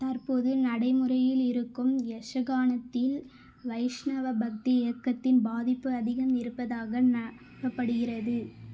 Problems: constant background noise